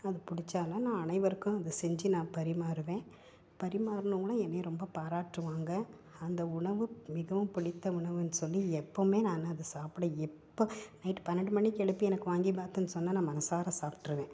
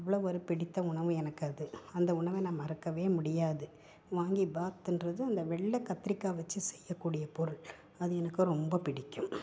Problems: none marked